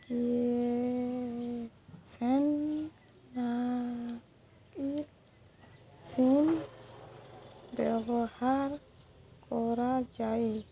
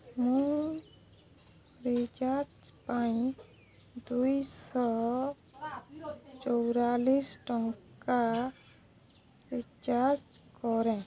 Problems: none marked